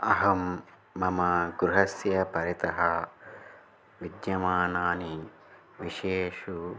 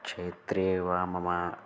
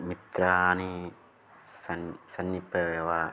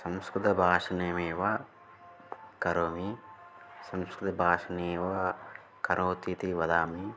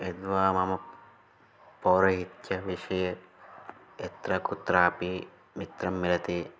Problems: none marked